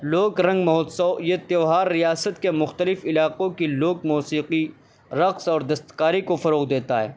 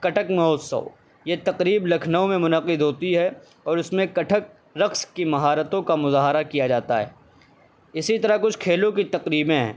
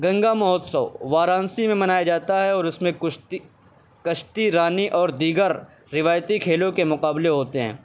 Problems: constant background noise